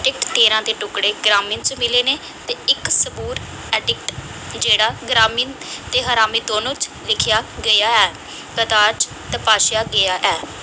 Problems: echo